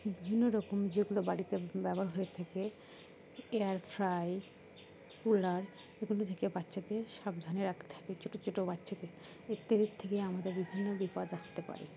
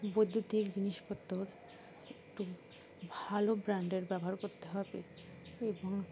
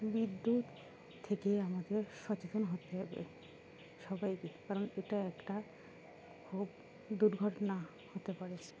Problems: constant background noise, background conversations at intervals